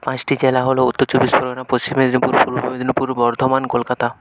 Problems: continuous background conversations